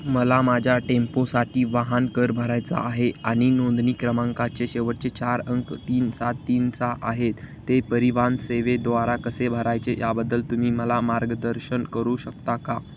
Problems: constant background noise